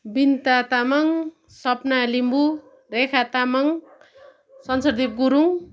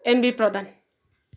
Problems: constant background noise